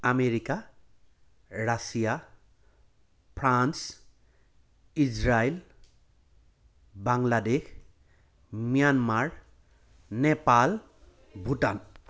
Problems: background sounds at intervals